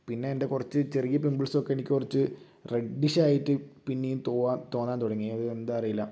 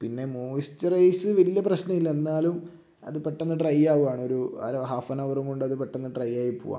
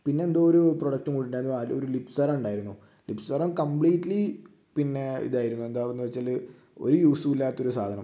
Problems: low volume